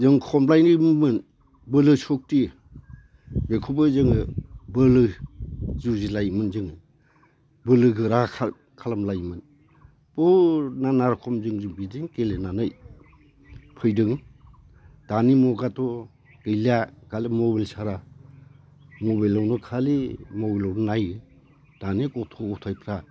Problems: constant background noise